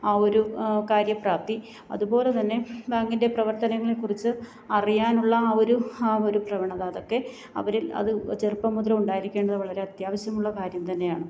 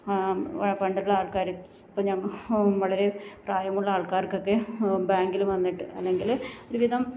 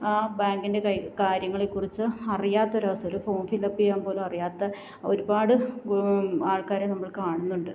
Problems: low volume